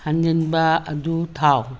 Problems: background sounds at intervals